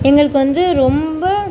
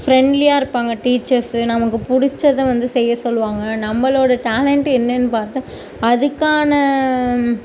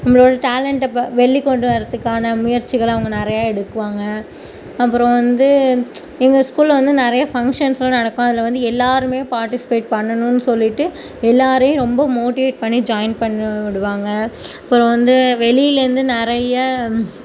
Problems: background sounds at intervals